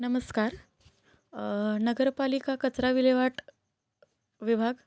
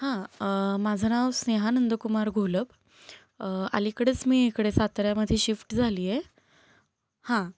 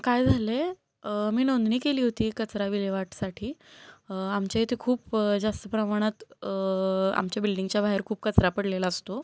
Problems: none marked